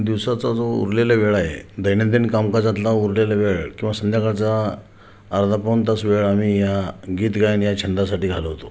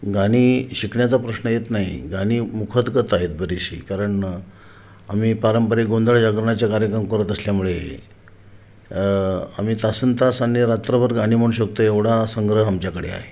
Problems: none marked